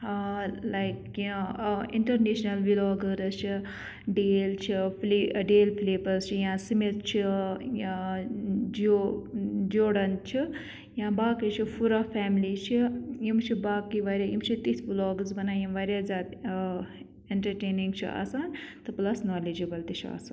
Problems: background sounds at intervals